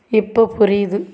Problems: constant background noise